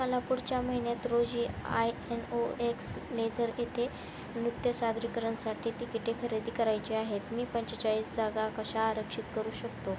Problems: constant background noise